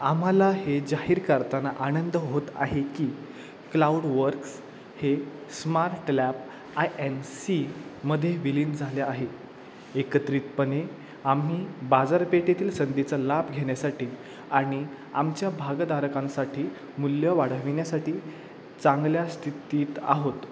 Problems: none marked